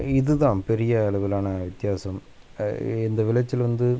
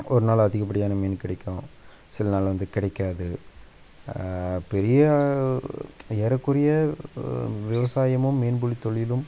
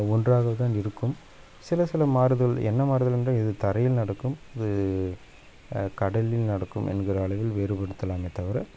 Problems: background sounds at intervals